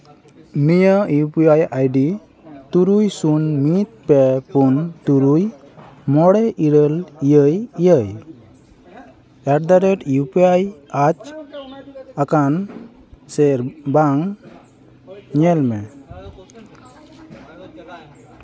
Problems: continuous background conversations